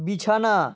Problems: none marked